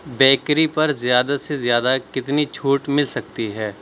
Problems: background sounds at intervals